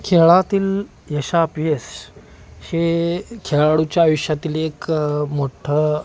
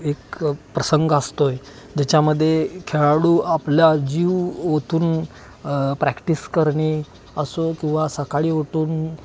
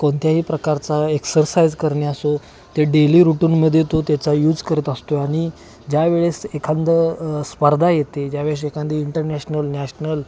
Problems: constant background noise, background conversations at intervals